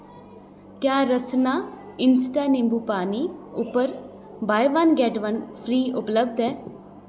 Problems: echo